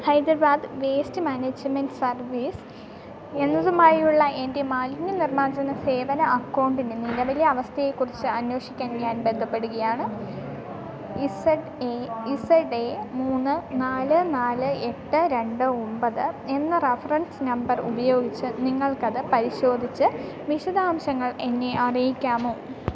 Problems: continuous background conversations, low volume